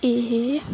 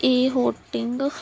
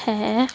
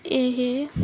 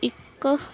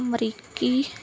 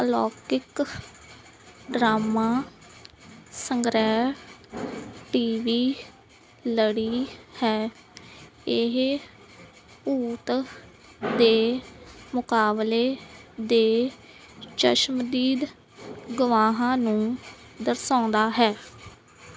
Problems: none marked